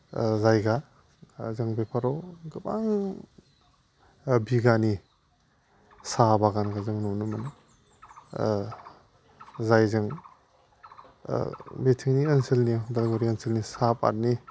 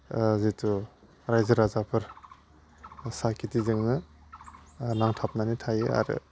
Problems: constant background noise